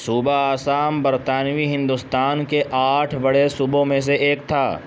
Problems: constant background noise